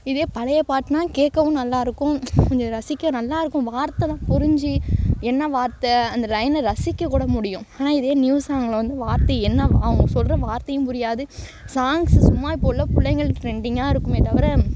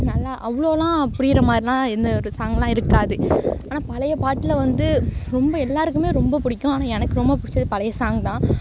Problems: background sounds at intervals